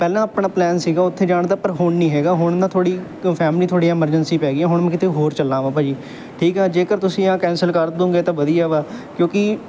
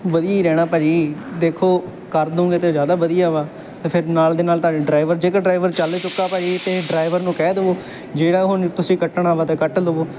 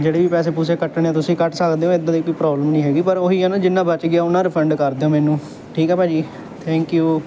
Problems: none marked